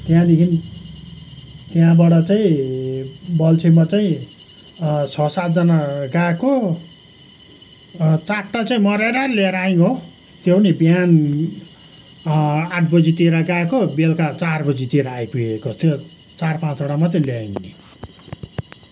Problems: background sounds at intervals